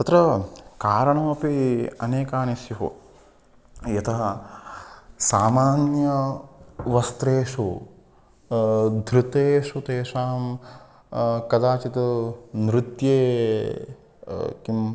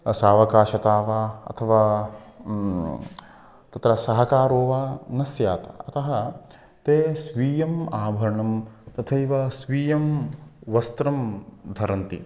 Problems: constant background noise